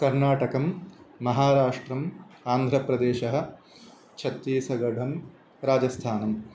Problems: constant background noise